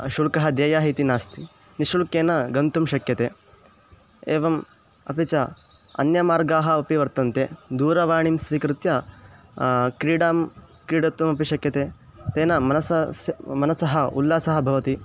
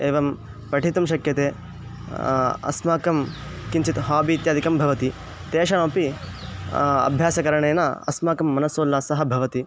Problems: constant background noise